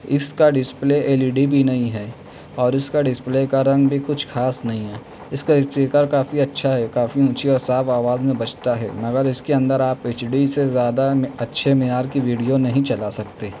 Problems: none marked